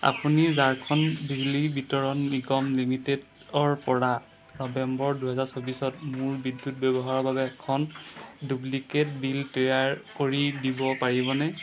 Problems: constant background noise